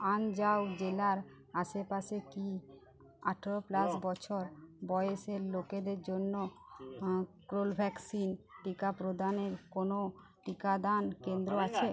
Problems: none marked